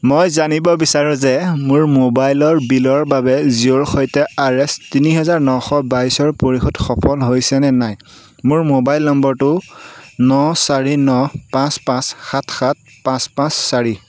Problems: none marked